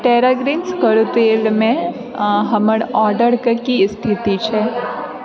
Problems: background sounds at intervals, background conversations at intervals